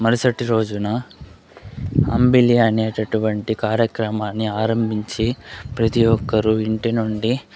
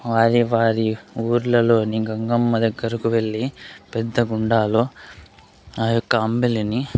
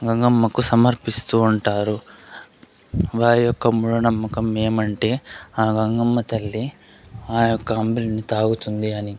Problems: constant background noise, background conversations at intervals